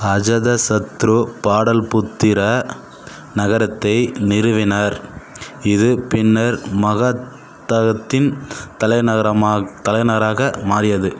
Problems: constant background noise